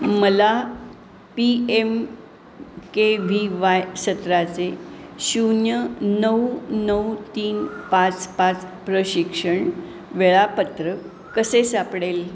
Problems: none marked